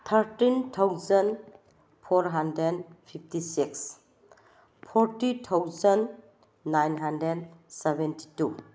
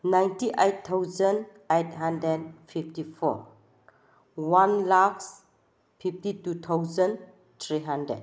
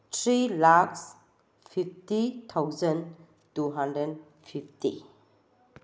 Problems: none marked